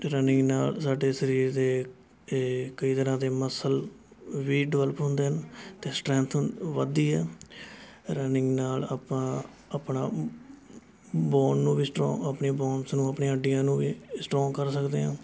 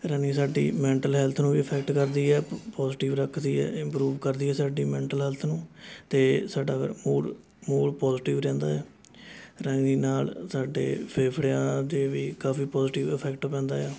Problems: constant background noise, continuous background conversations